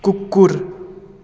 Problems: constant background noise